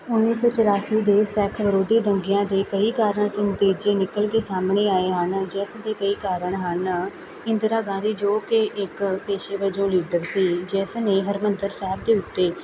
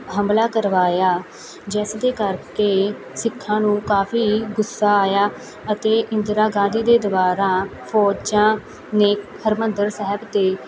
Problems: none marked